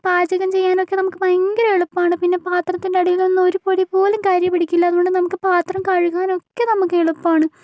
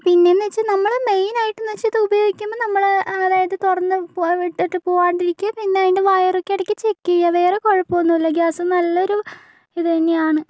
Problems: none marked